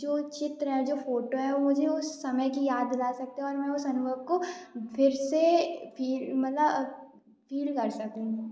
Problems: background sounds at intervals